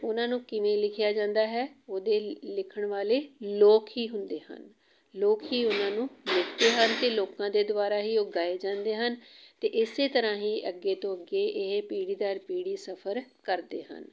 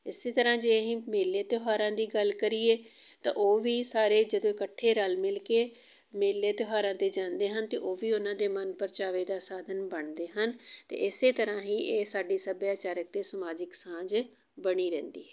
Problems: background sounds at intervals